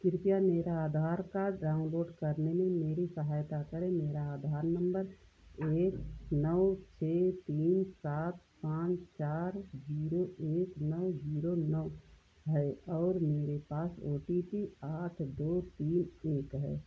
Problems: low volume